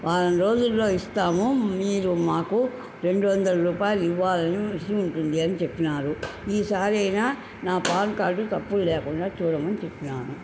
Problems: constant background noise